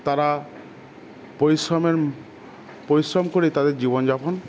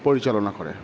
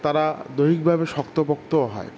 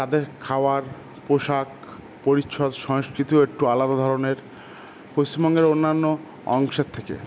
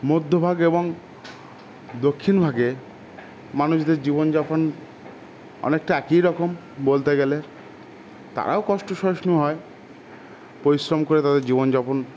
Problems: constant background noise